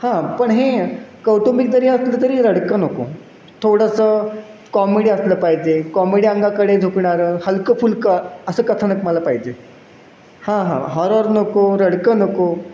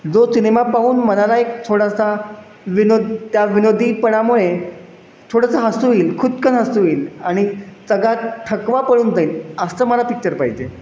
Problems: constant background noise